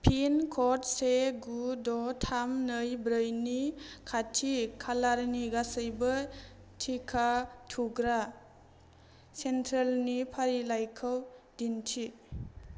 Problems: low volume